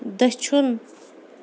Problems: constant background noise